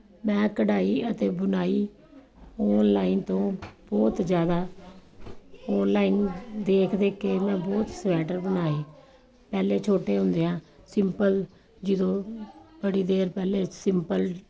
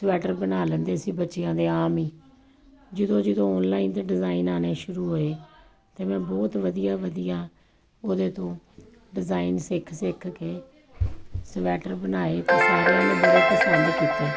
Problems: background sounds at intervals